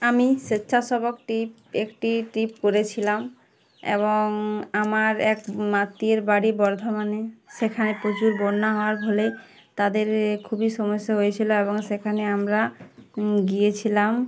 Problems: background sounds at intervals, background conversations at intervals